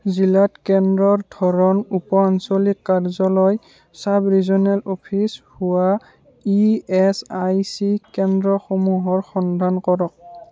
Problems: background conversations at intervals